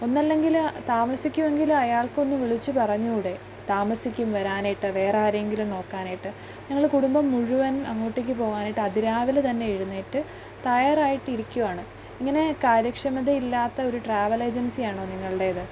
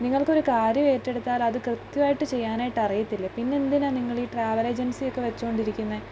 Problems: background sounds at intervals, low volume